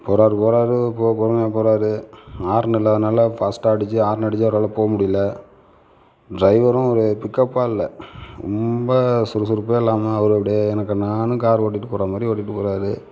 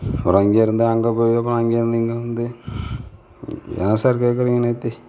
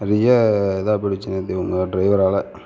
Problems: none marked